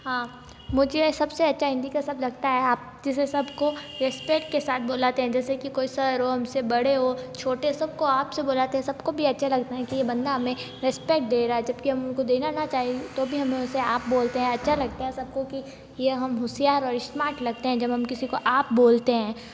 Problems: background sounds at intervals